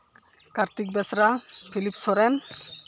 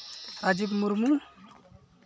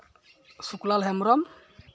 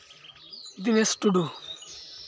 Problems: constant background noise, background conversations at intervals